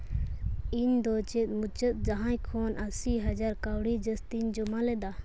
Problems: none marked